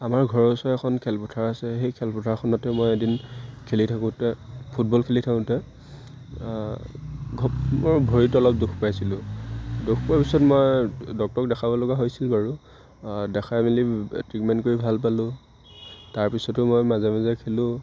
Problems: none marked